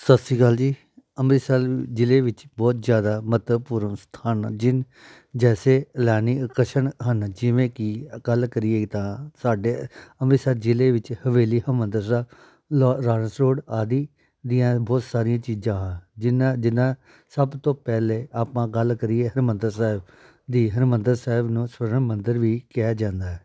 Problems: none marked